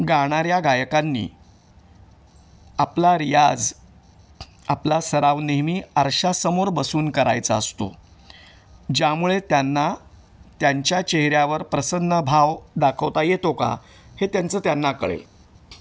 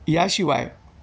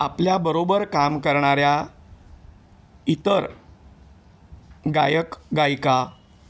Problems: none marked